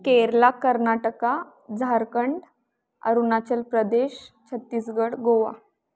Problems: background sounds at intervals